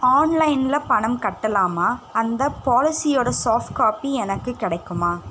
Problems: constant background noise